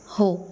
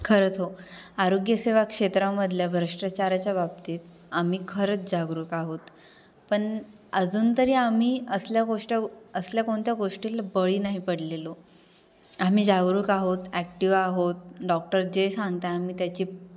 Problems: constant background noise